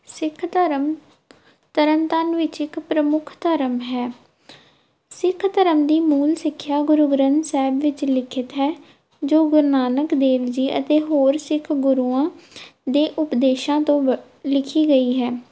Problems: background sounds at intervals